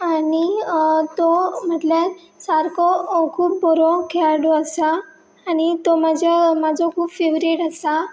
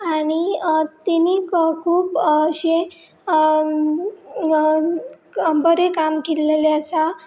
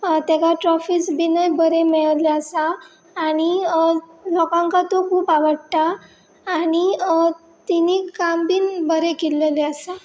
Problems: none marked